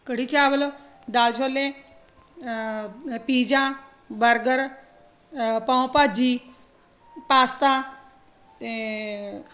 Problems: constant background noise